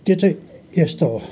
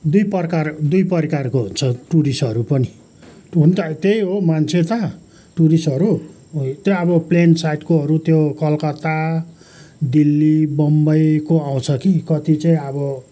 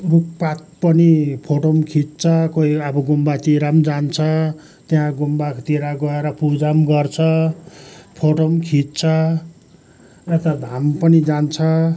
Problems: background sounds at intervals, background conversations at intervals